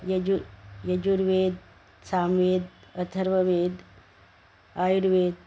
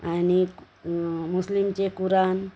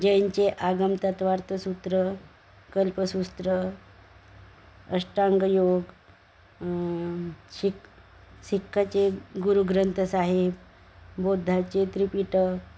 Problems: constant background noise